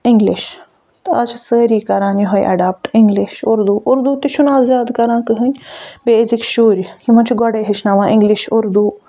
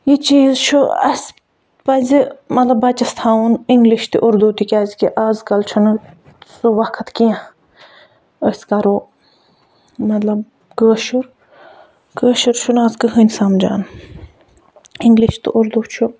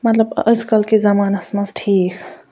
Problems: none marked